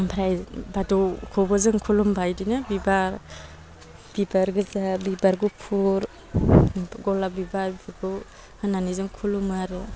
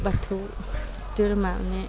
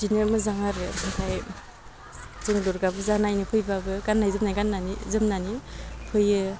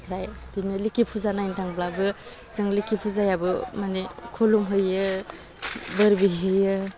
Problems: low volume